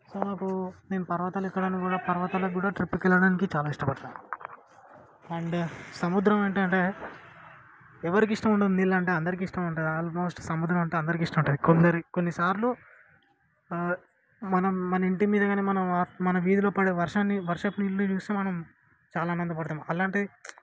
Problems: low volume